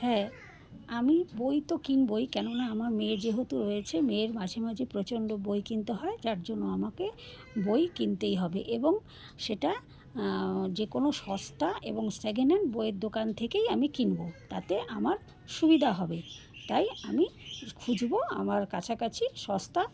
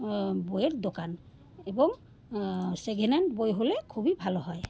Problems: background sounds at intervals, background conversations at intervals